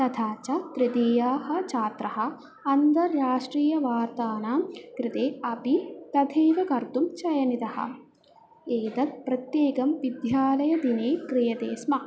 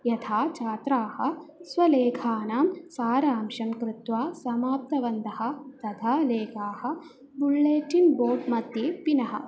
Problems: none marked